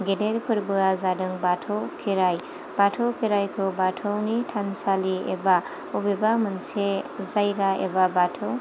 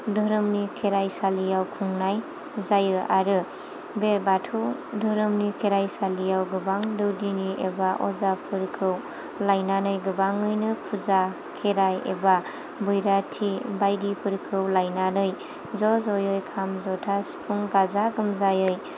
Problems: none marked